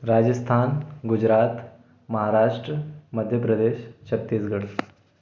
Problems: none marked